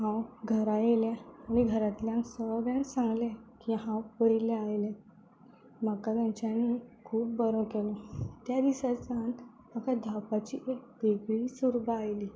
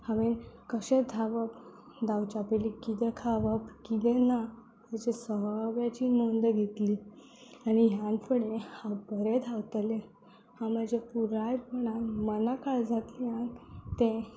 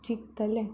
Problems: constant background noise